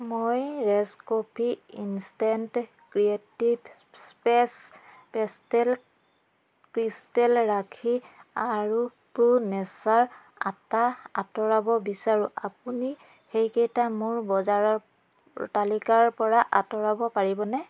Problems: background sounds at intervals